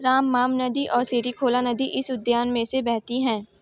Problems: background sounds at intervals